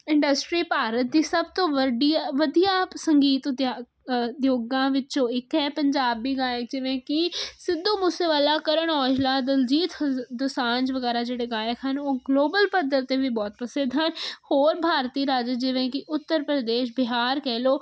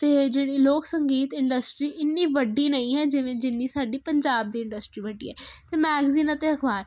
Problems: constant background noise